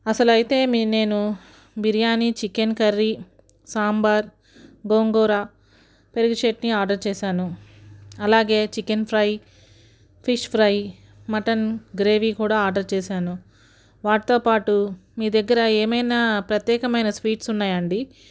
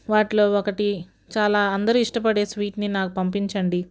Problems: none marked